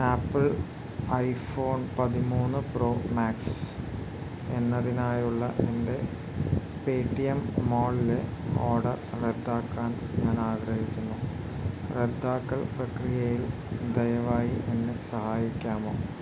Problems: none marked